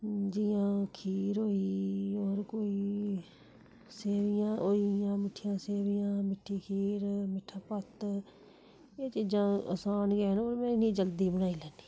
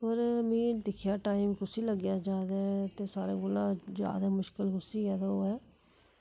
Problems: background sounds at intervals